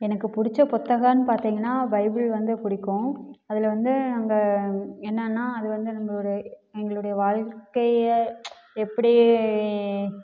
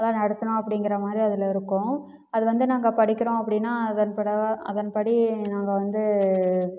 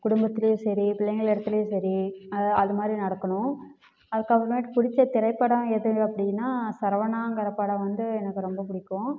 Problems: none marked